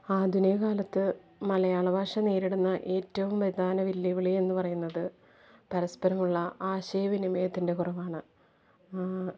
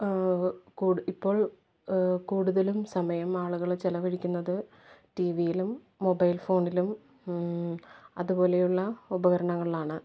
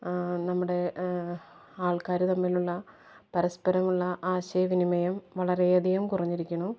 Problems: background sounds at intervals, low volume